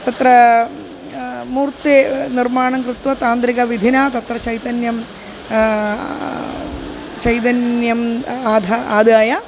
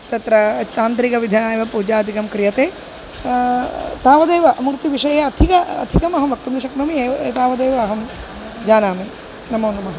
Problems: constant background noise